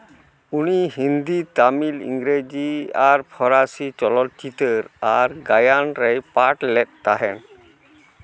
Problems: constant background noise, continuous background conversations